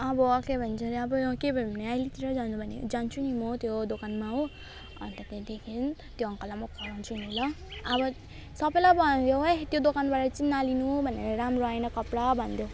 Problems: none marked